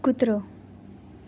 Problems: none marked